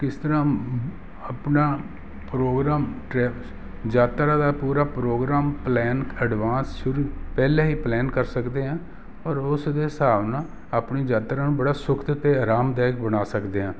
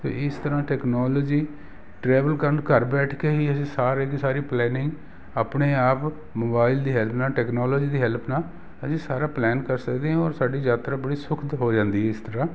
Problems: none marked